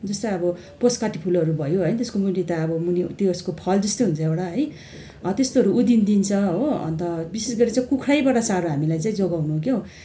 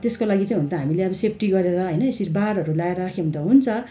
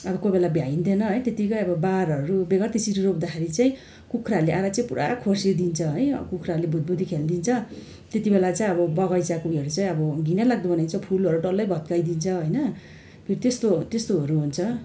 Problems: none marked